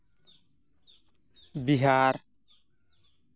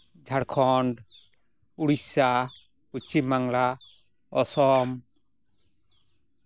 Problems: none marked